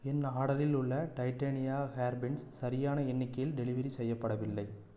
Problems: none marked